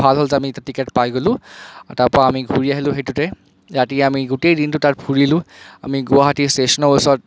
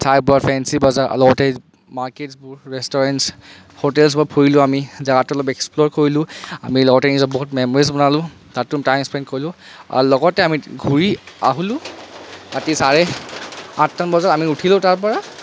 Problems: constant background noise